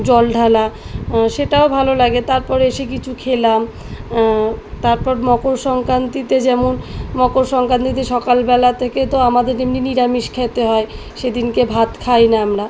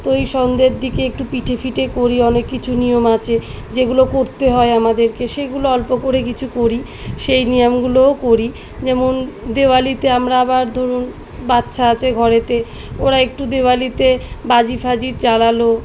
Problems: background sounds at intervals